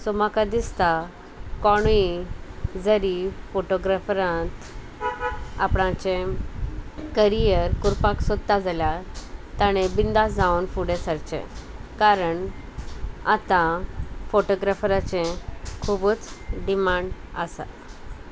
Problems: constant background noise